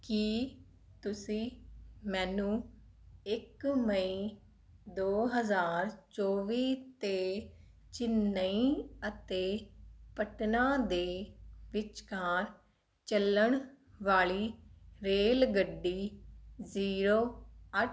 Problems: none marked